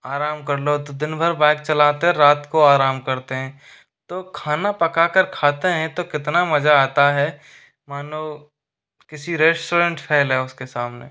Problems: constant background noise